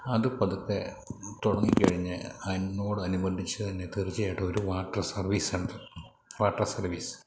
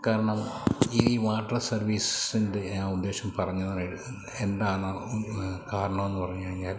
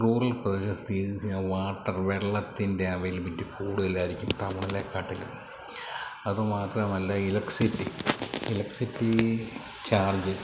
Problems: none marked